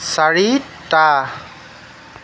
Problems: constant background noise